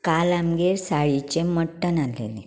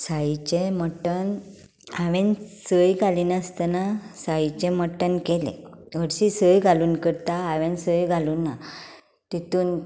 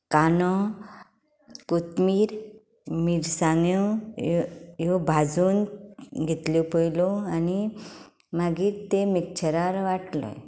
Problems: none marked